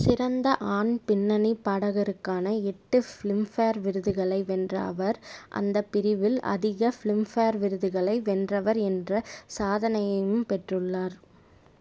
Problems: none marked